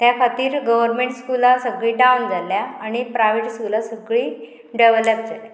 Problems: constant background noise